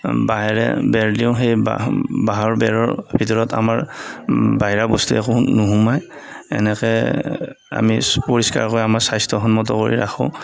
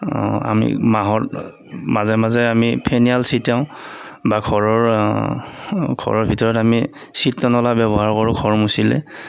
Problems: none marked